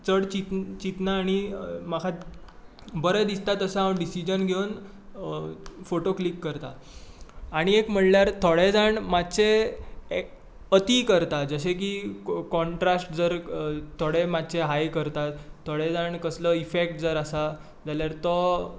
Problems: constant background noise